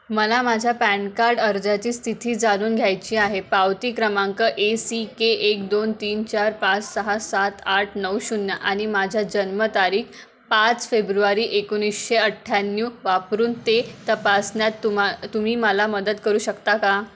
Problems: none marked